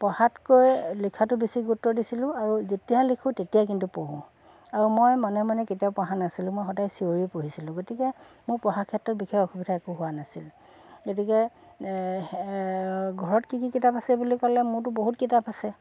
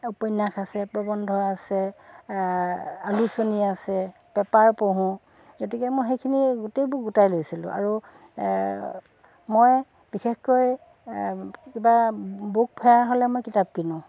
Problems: constant background noise, background conversations at intervals